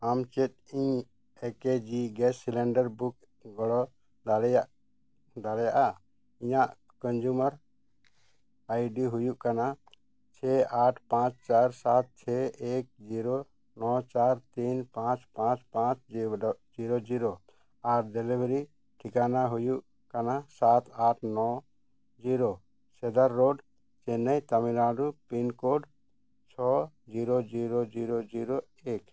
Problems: none marked